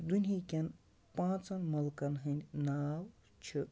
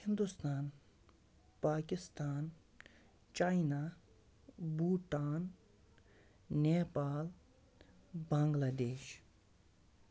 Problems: background sounds at intervals, low volume